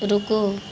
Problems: constant background noise